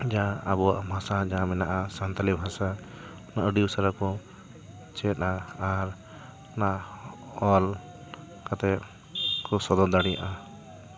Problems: continuous background conversations